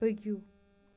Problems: none marked